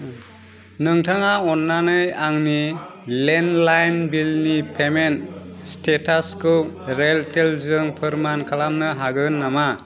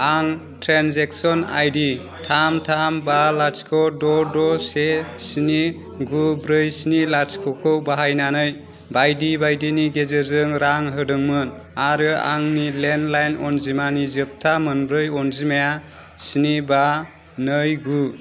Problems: constant background noise